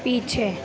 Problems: constant background noise